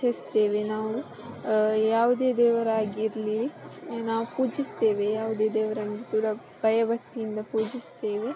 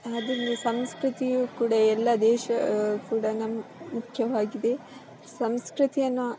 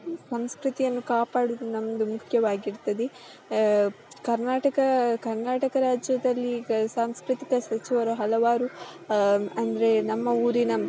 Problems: constant background noise